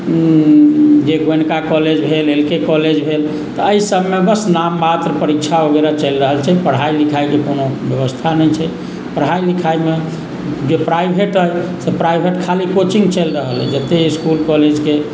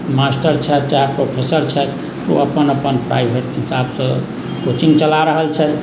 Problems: background sounds at intervals